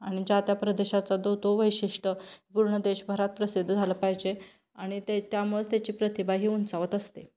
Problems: none marked